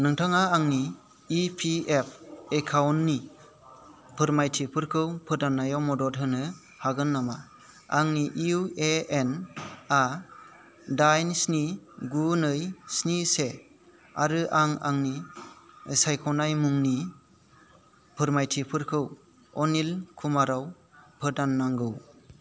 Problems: constant background noise